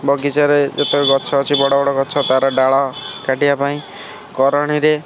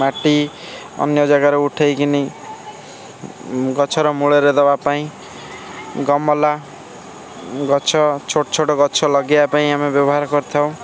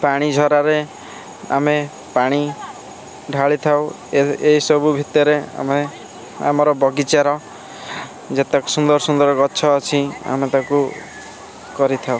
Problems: constant background noise, continuous background conversations